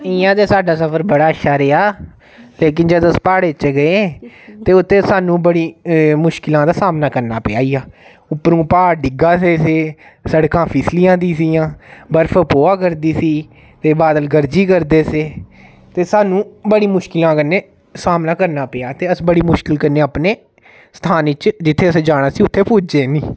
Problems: none marked